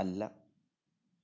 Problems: low volume